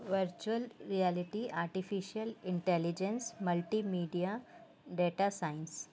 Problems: constant background noise